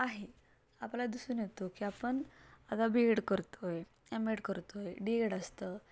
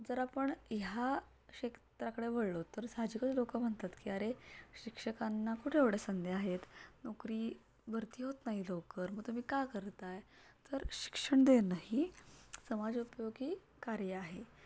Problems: none marked